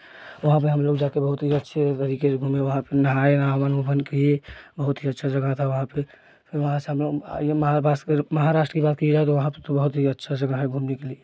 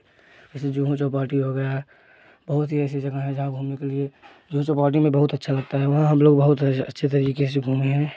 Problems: none marked